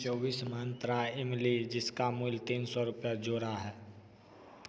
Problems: constant background noise, echo